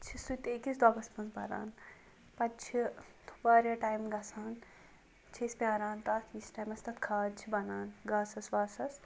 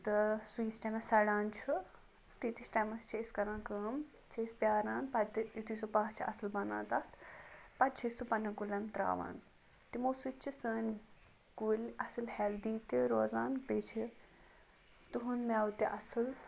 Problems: none marked